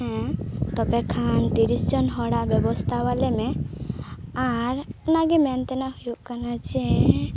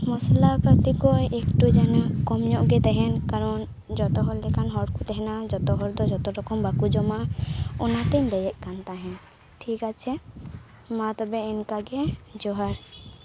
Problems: constant background noise